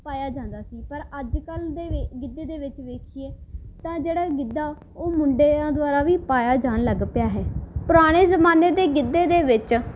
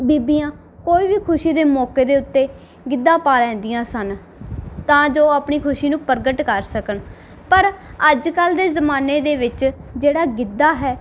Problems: background sounds at intervals